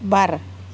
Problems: constant background noise